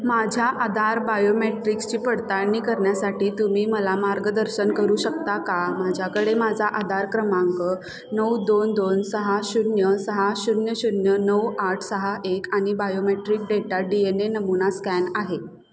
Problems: none marked